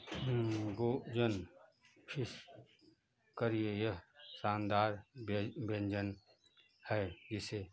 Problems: constant background noise